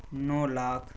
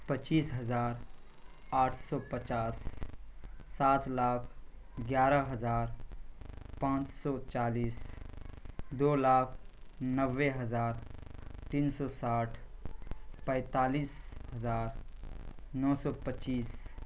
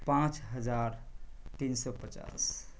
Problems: constant background noise